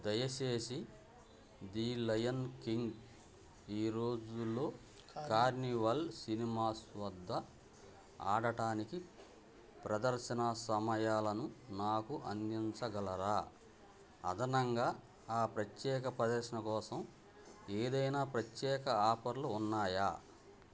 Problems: none marked